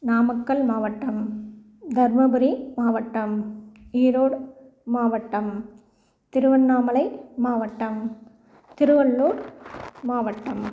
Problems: background sounds at intervals